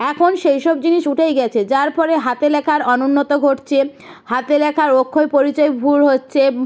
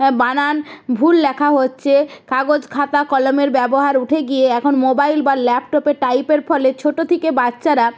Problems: background sounds at intervals